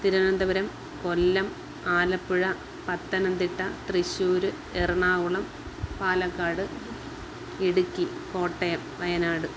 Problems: none marked